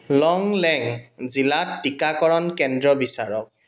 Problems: constant background noise, echo